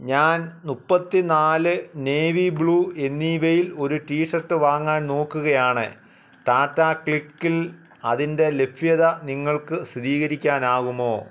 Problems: background conversations at intervals